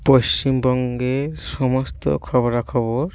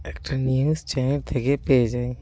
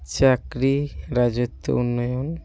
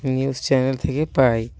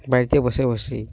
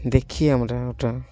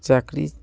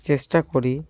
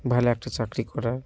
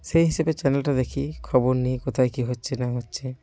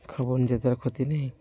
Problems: none marked